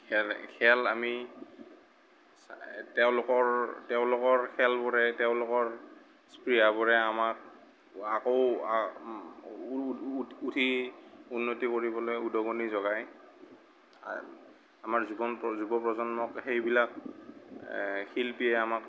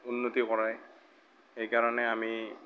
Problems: none marked